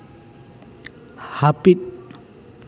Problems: constant background noise